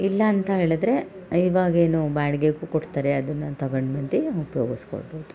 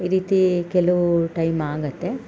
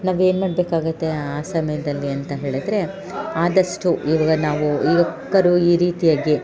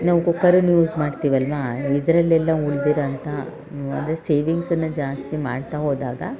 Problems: background sounds at intervals